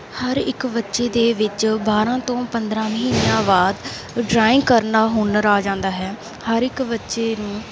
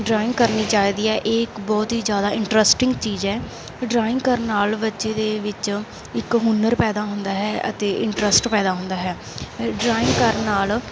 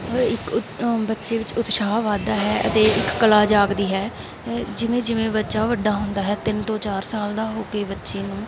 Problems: background sounds at intervals